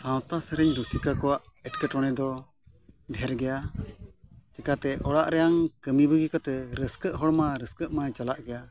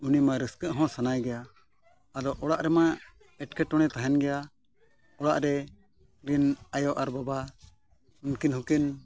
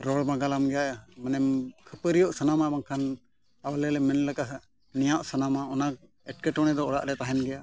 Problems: background sounds at intervals